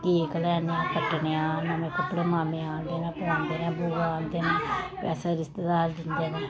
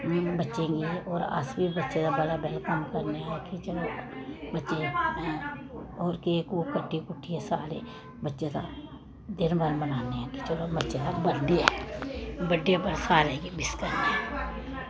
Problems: background sounds at intervals